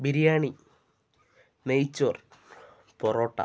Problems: none marked